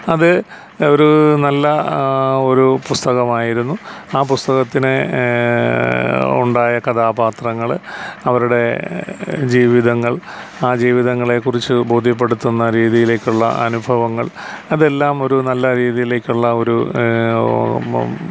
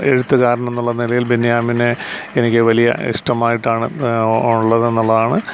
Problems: constant background noise